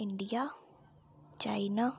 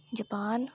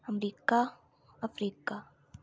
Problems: low volume